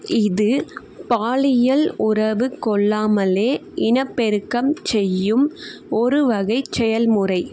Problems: none marked